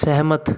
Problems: constant background noise